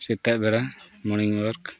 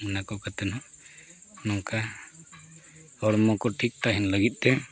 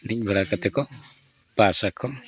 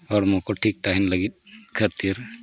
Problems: none marked